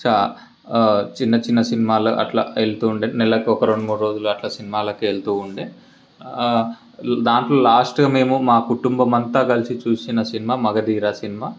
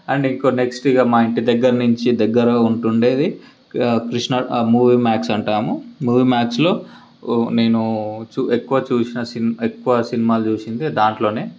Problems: background sounds at intervals